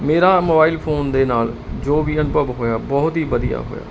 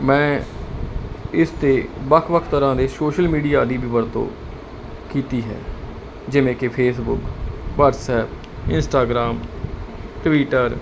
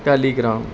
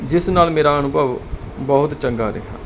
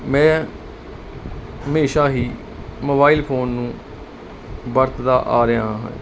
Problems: constant background noise